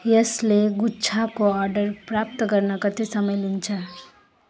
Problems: constant background noise